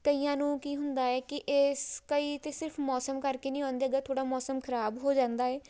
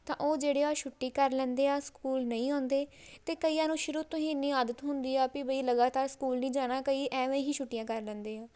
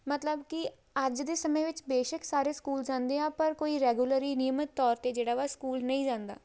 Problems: background sounds at intervals